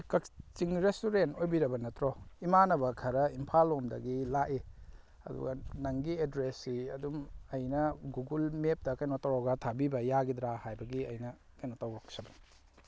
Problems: none marked